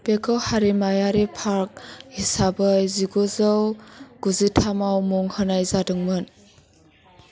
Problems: constant background noise